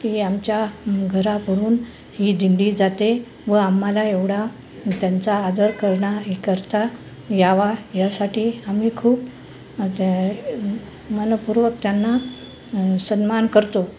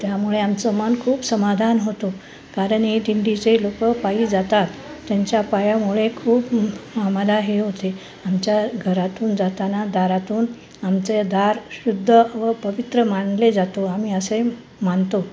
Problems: none marked